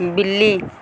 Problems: constant background noise